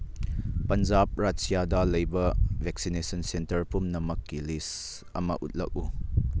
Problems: background sounds at intervals